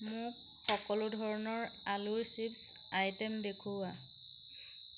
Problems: constant background noise